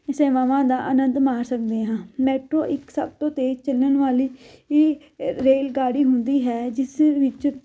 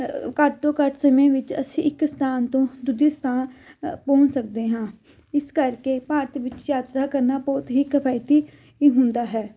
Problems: none marked